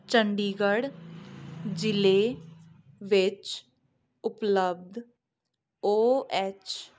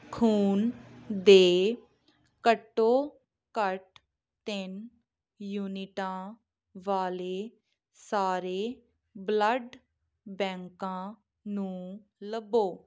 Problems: background sounds at intervals